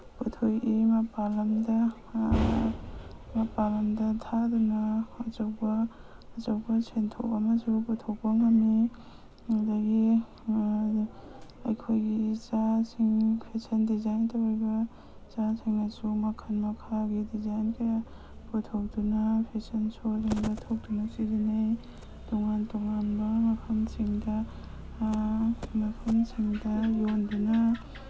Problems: background sounds at intervals